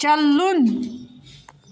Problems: constant background noise